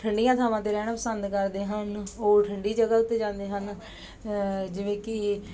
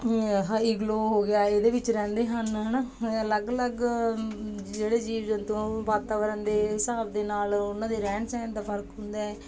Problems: background sounds at intervals